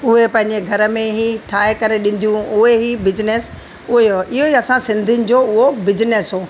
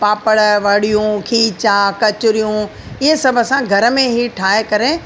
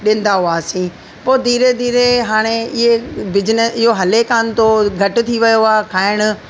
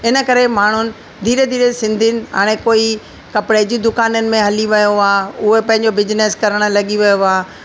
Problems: constant background noise, echo